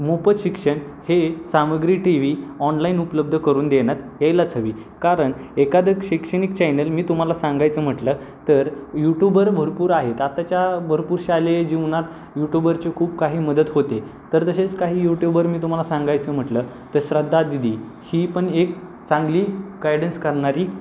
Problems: constant background noise